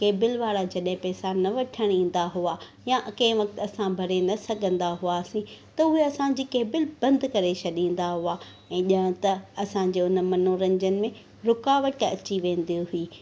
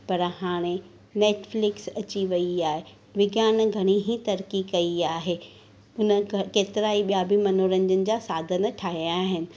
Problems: constant background noise